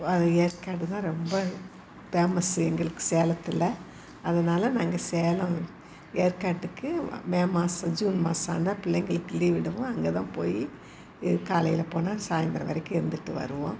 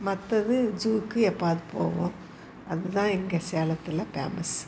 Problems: constant background noise, background conversations at intervals